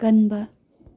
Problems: none marked